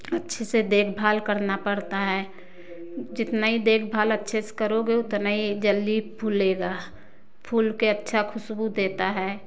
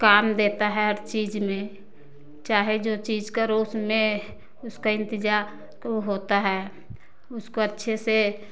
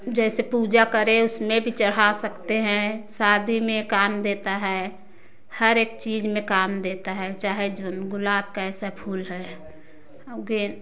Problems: constant background noise